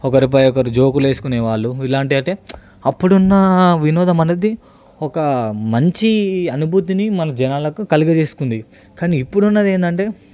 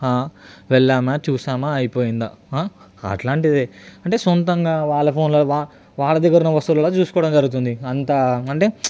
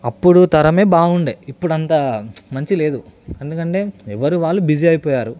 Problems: none marked